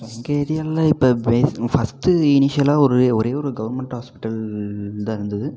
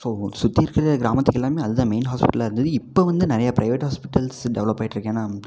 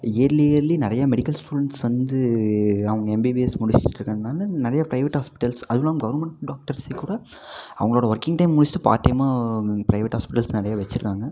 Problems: constant background noise